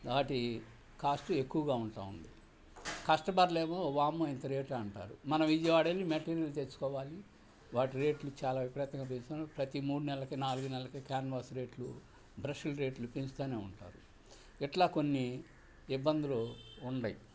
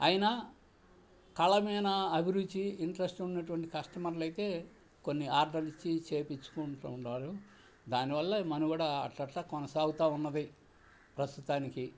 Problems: background sounds at intervals